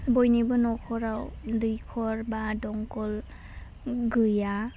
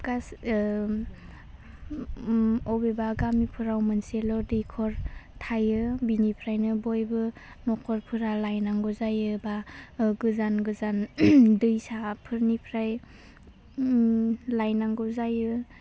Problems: constant background noise